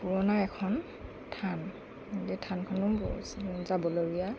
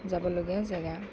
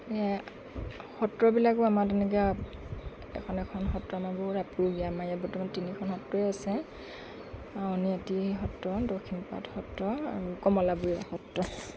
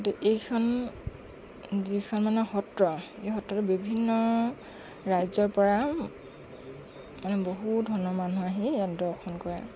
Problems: none marked